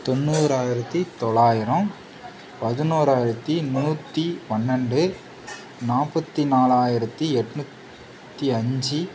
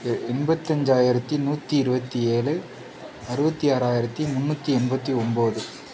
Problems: background sounds at intervals